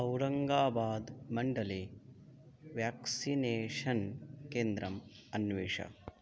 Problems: none marked